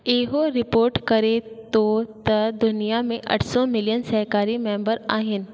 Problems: echo